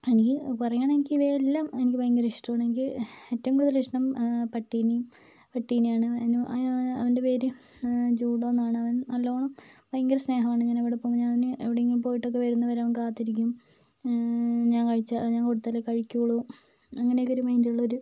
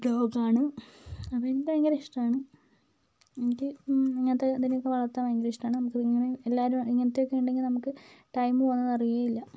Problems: low volume